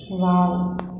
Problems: background sounds at intervals